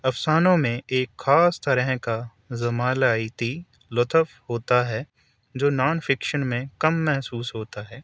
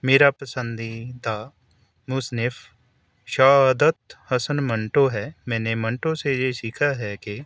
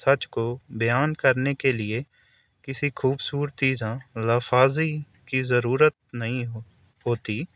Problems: none marked